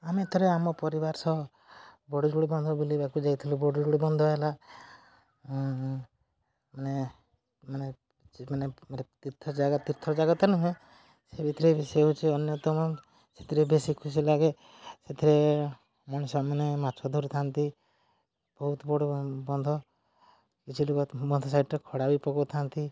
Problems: low volume